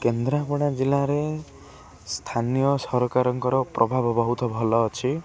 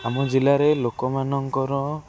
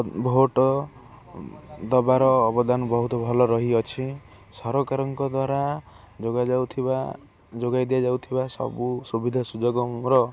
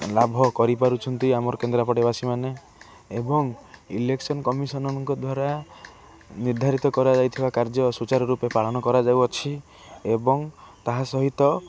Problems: constant background noise, continuous background conversations